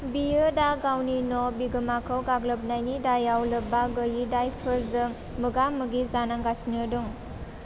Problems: constant background noise